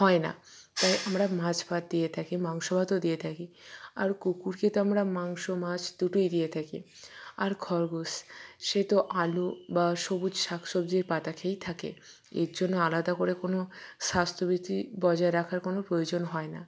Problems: none marked